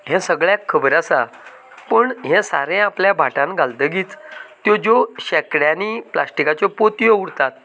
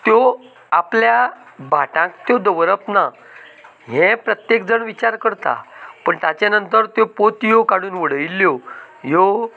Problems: none marked